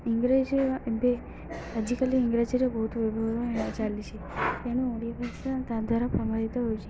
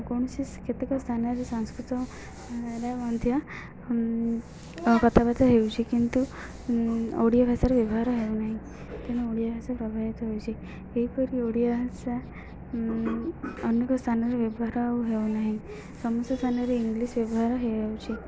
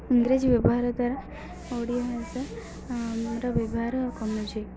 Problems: none marked